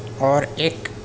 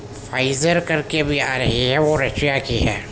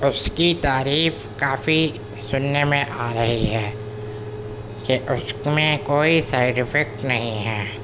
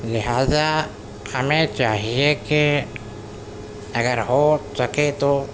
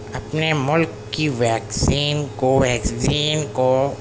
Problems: constant background noise